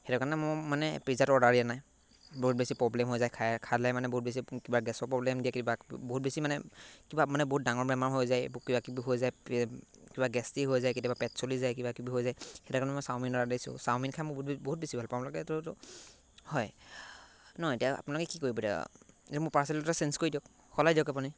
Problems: background sounds at intervals